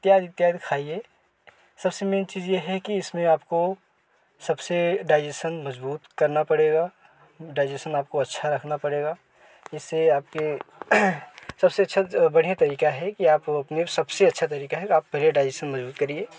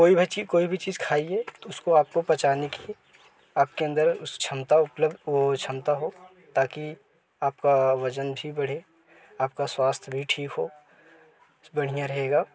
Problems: none marked